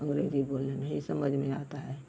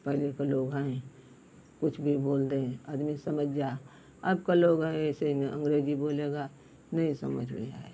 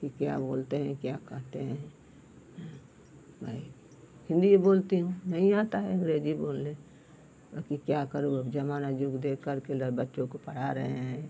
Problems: none marked